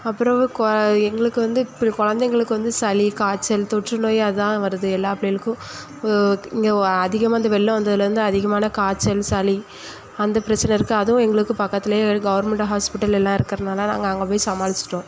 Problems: echo